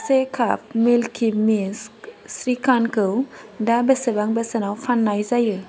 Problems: constant background noise